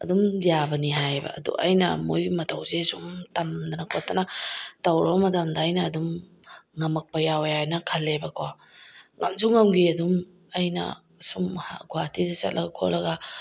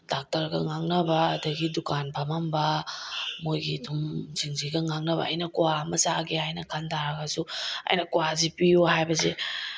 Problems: none marked